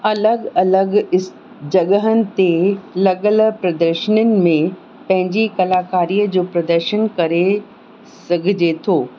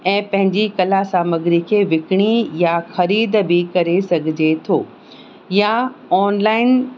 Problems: constant background noise